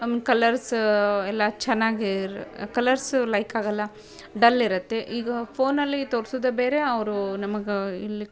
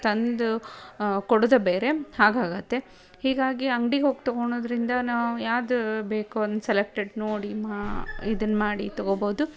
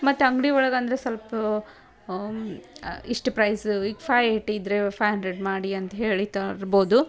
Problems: none marked